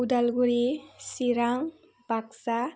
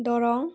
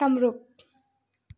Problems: none marked